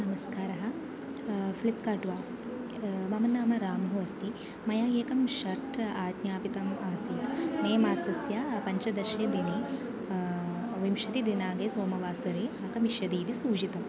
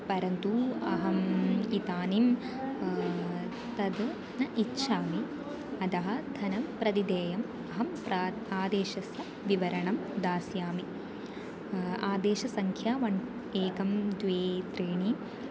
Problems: constant background noise, continuous background conversations